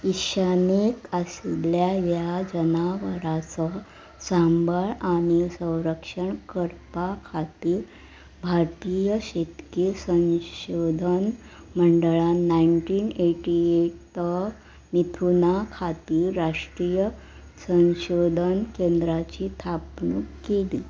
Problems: none marked